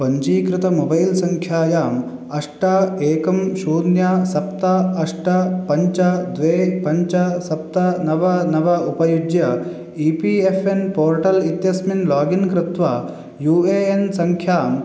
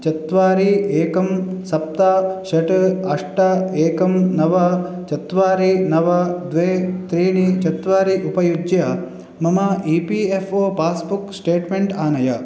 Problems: none marked